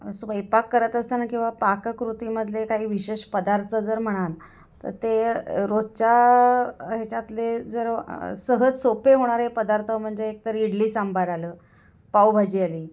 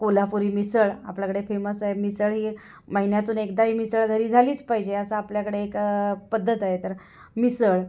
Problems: background sounds at intervals